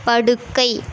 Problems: constant background noise